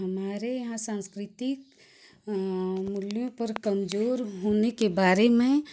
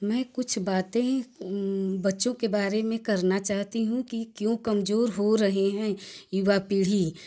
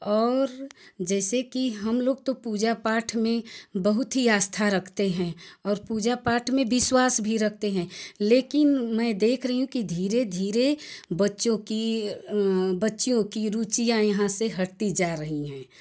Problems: none marked